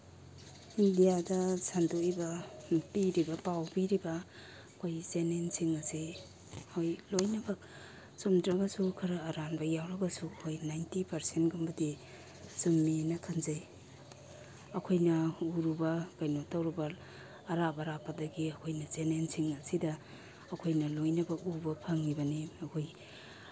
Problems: constant background noise